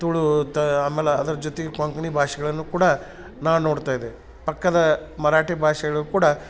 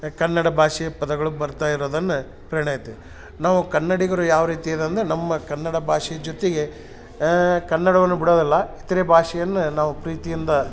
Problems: none marked